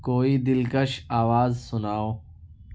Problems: none marked